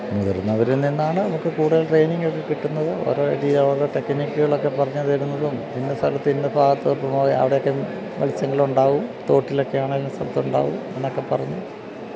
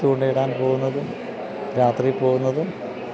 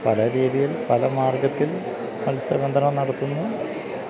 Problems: constant background noise, low volume